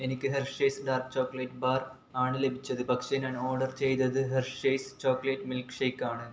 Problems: none marked